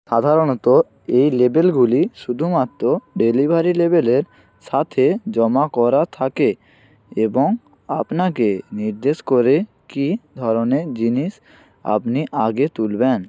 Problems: background sounds at intervals